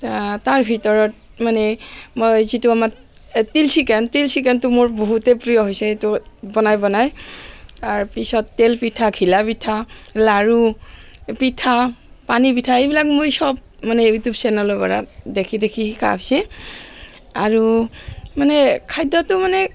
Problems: constant background noise